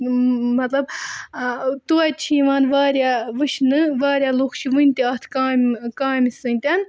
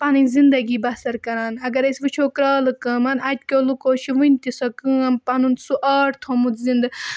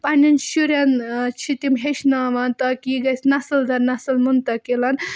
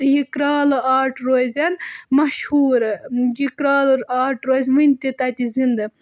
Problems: background sounds at intervals